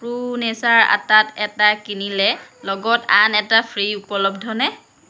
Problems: none marked